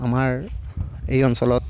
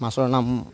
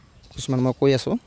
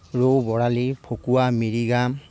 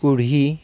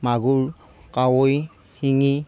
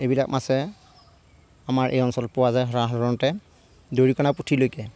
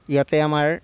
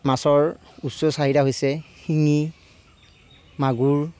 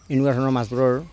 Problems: constant background noise